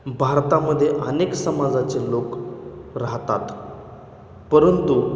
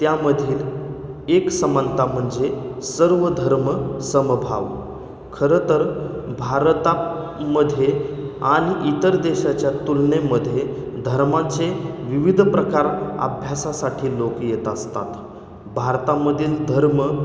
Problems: none marked